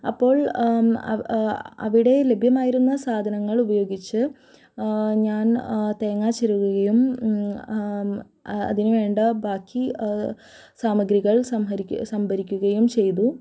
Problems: none marked